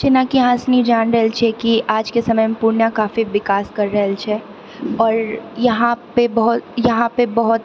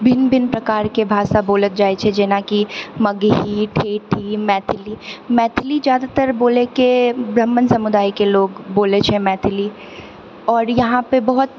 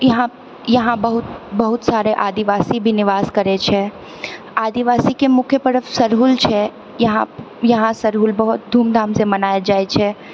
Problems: none marked